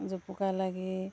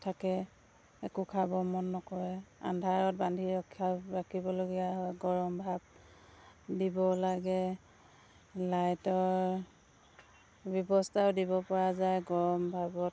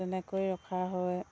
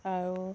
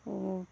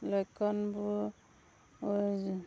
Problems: constant background noise